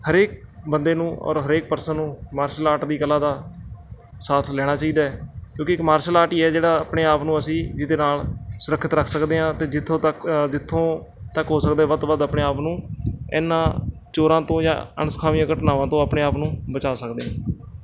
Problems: constant background noise